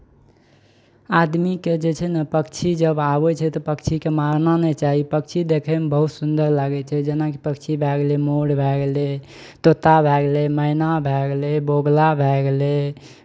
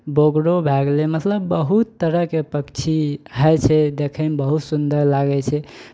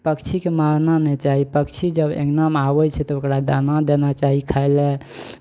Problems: none marked